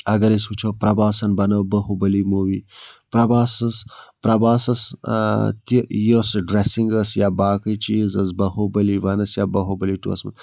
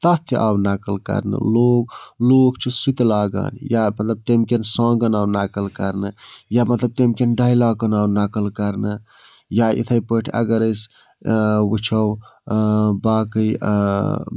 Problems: none marked